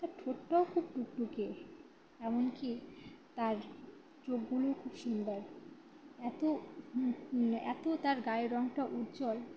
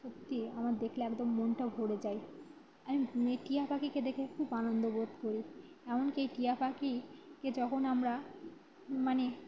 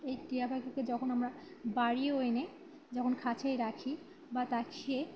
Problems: background sounds at intervals, continuous background conversations